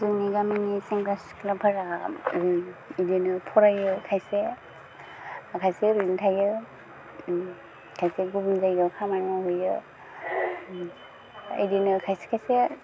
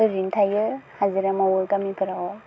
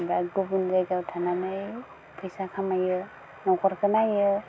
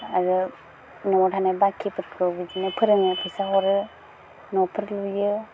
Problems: constant background noise